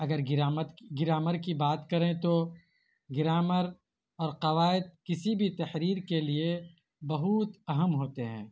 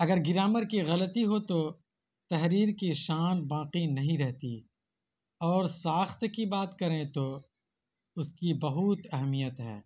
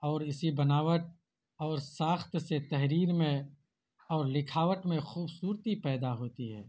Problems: constant background noise